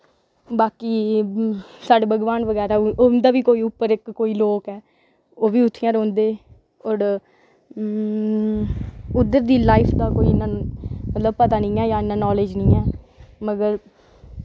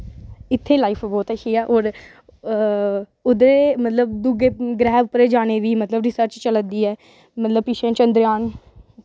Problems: none marked